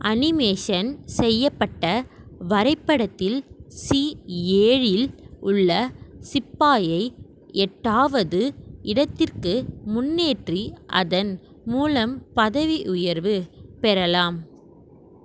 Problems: none marked